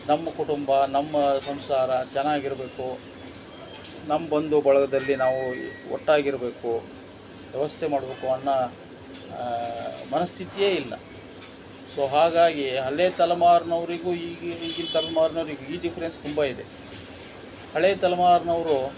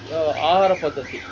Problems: background sounds at intervals